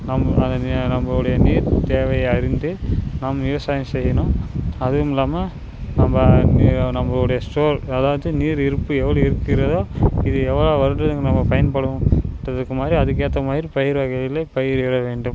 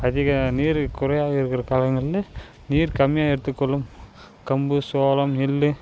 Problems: constant background noise